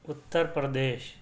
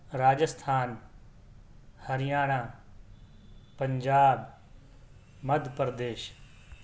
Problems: none marked